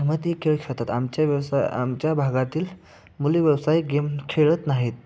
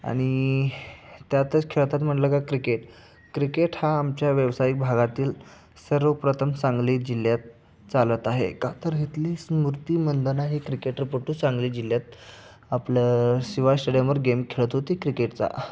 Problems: none marked